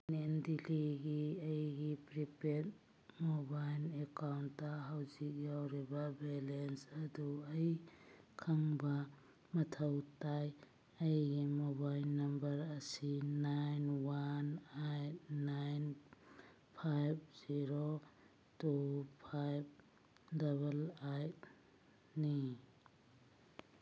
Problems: none marked